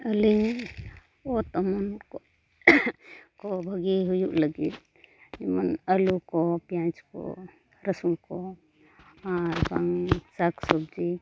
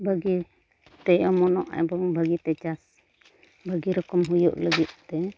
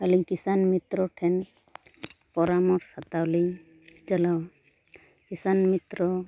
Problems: none marked